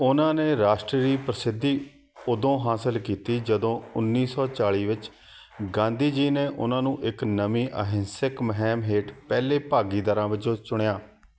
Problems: constant background noise